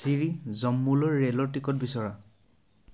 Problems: none marked